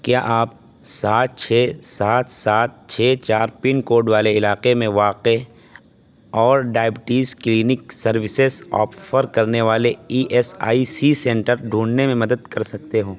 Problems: constant background noise